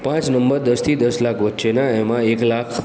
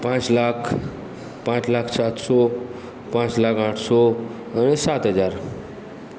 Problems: background sounds at intervals